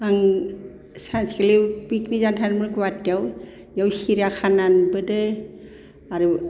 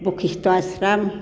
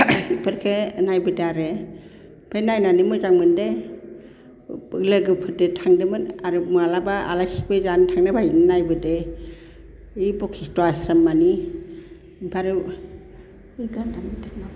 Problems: constant background noise